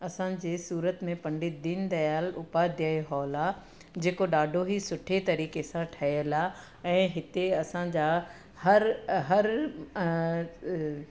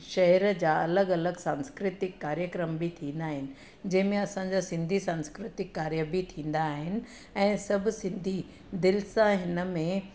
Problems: none marked